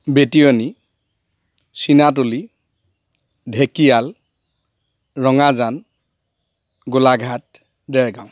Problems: none marked